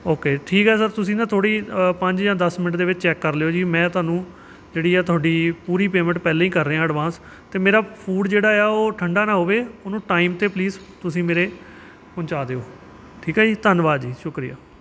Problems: none marked